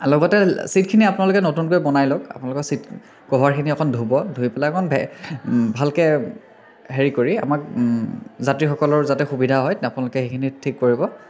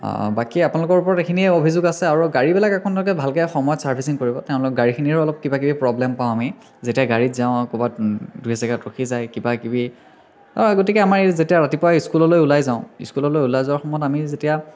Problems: constant background noise, continuous background conversations